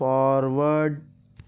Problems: constant background noise